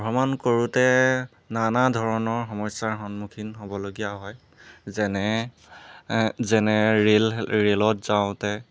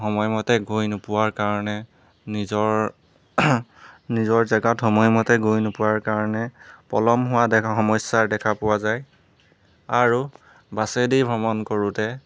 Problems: background sounds at intervals